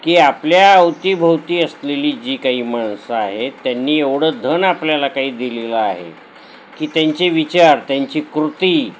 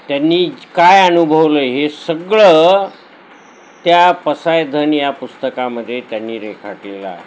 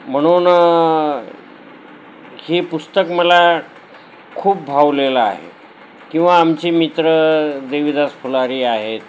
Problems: none marked